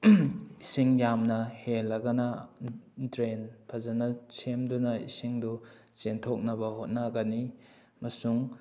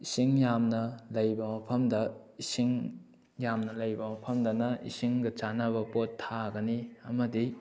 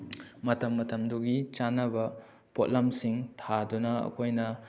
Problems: background sounds at intervals